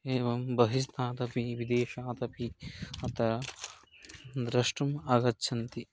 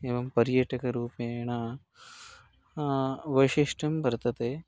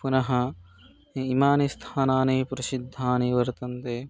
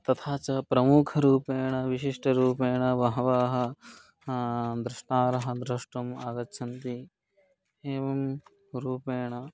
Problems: none marked